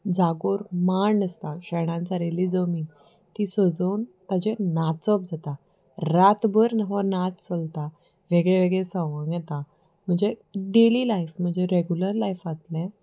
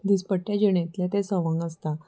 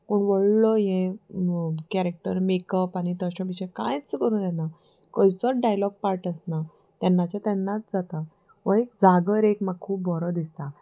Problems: background sounds at intervals